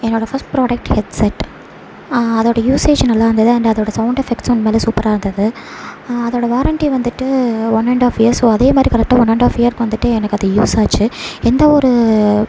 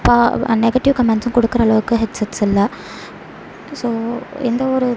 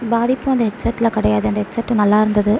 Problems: constant background noise